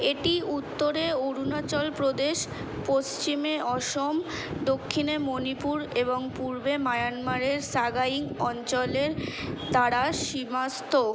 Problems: constant background noise